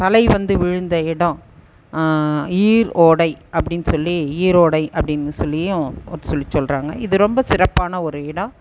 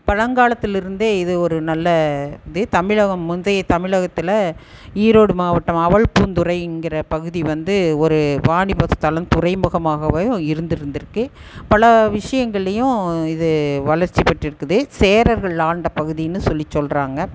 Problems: none marked